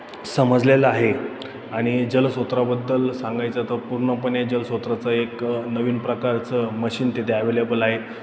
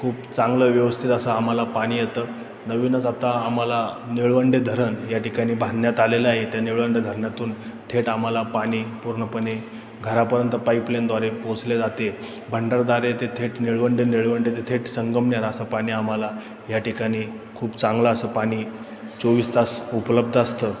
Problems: none marked